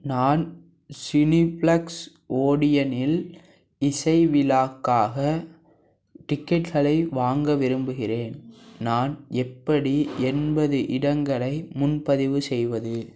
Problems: background sounds at intervals